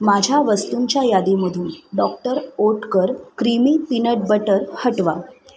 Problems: constant background noise, continuous background conversations